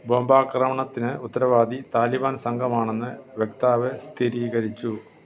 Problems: background sounds at intervals